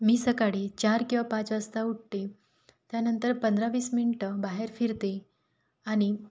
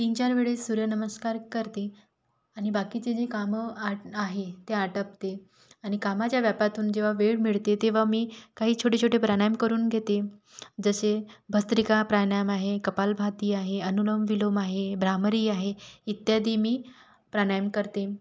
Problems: none marked